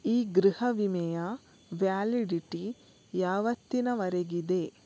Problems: none marked